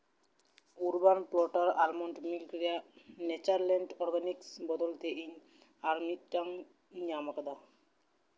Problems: constant background noise